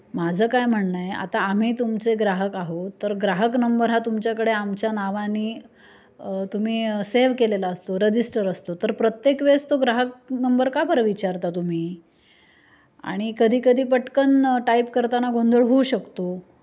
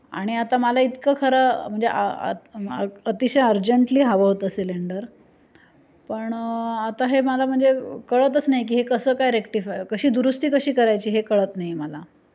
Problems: constant background noise, background conversations at intervals